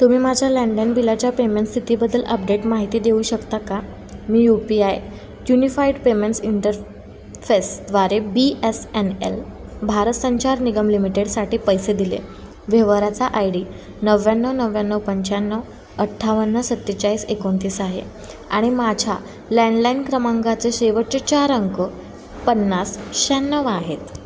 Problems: none marked